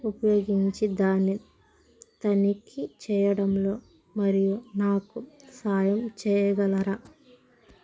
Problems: constant background noise